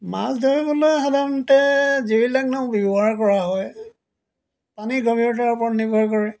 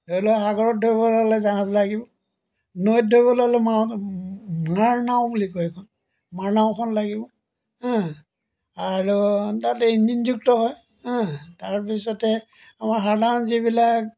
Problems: background sounds at intervals